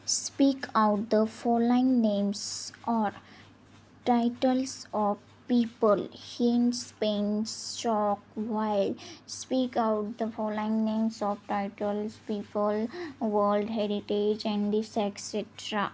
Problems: constant background noise